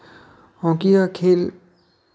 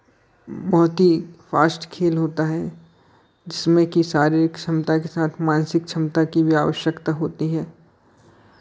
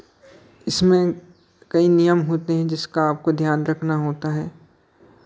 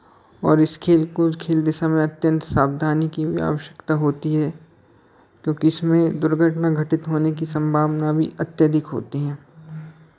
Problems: none marked